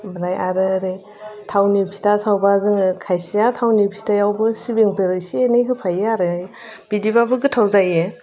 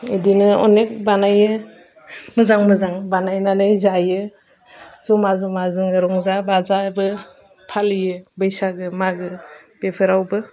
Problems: constant background noise